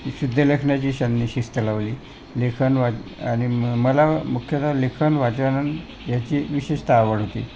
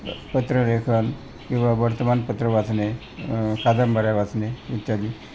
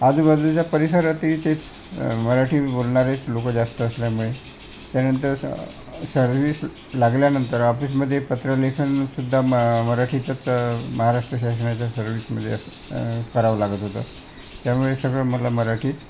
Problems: constant background noise, continuous background conversations